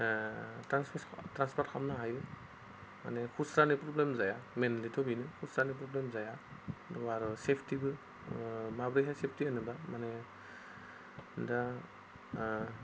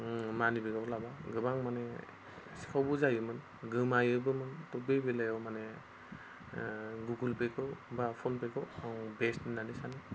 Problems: none marked